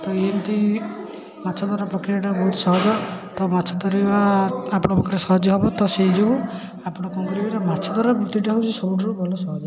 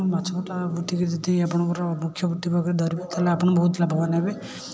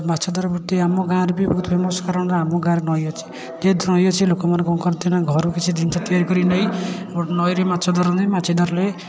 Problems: constant background noise, continuous background conversations